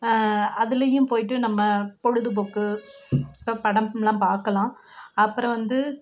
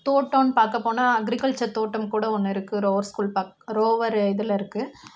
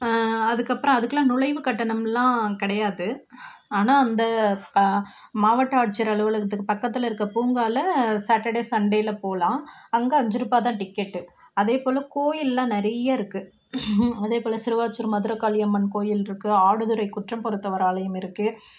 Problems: none marked